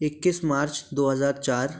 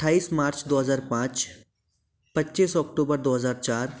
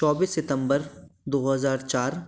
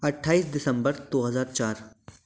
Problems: background sounds at intervals